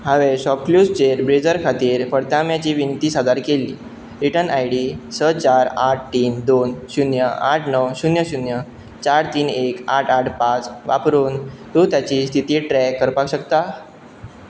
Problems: background sounds at intervals